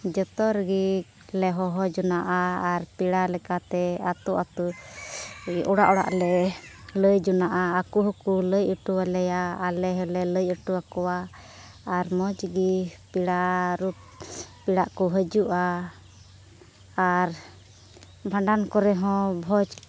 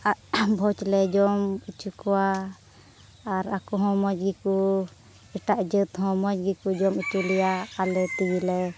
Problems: background sounds at intervals